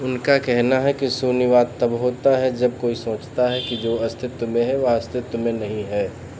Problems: background sounds at intervals